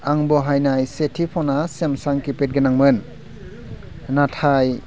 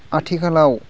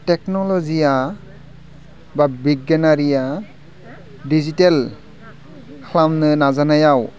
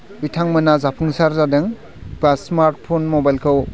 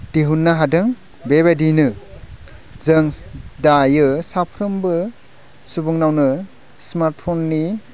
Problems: low volume